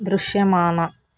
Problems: constant background noise